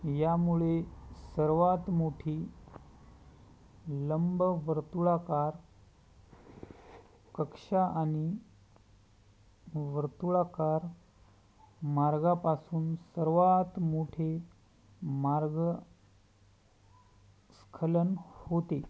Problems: background sounds at intervals